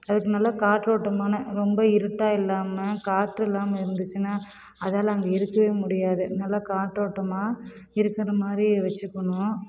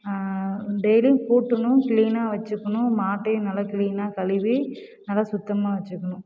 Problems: none marked